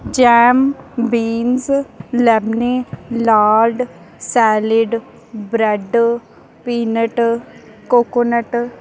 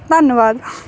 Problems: background sounds at intervals